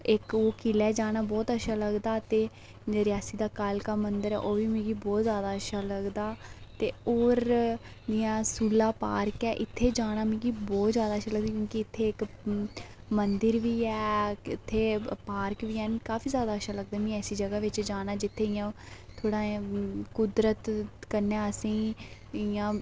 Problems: none marked